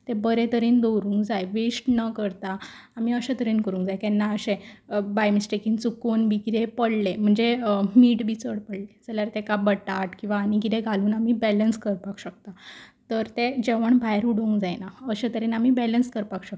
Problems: constant background noise